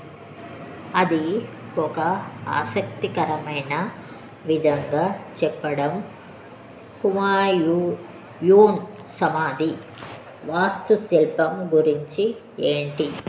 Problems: constant background noise